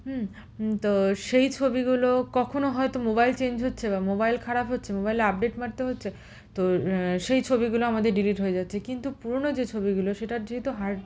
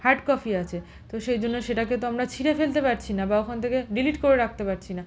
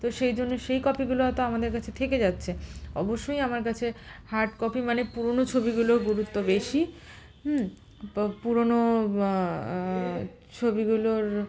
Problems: constant background noise, background conversations at intervals